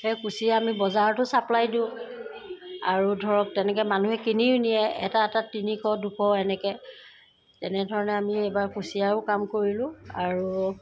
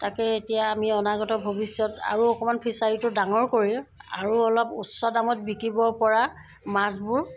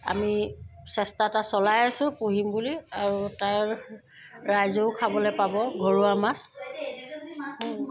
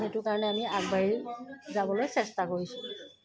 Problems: background sounds at intervals